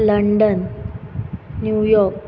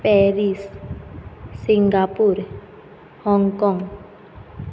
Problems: none marked